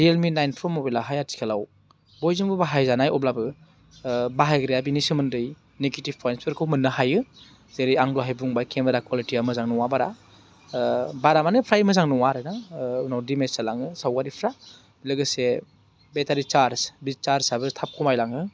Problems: low volume